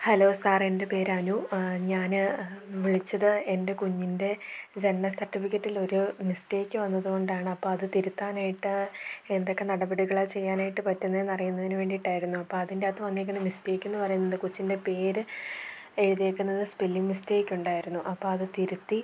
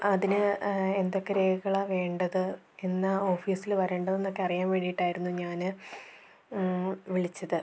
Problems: none marked